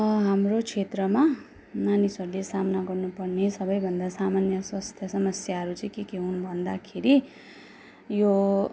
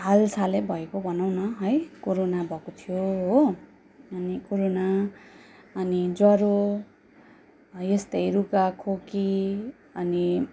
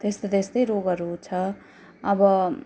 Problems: constant background noise